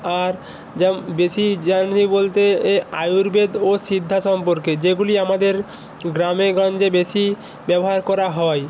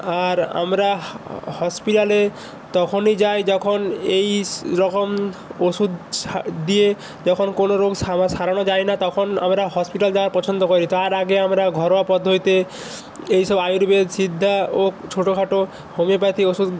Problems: constant background noise